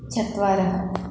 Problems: constant background noise